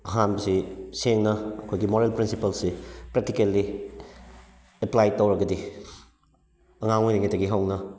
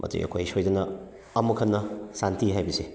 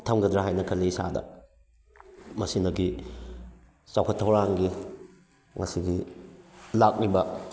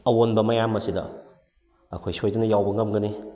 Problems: background sounds at intervals